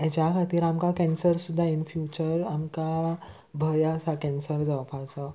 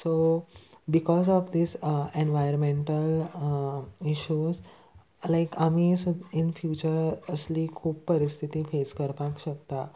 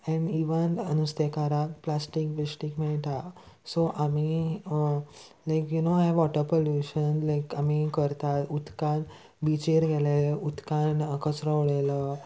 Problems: constant background noise